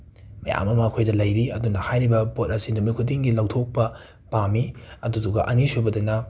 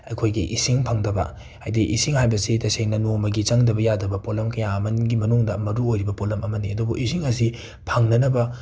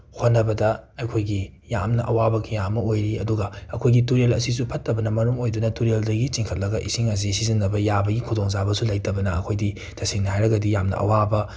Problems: none marked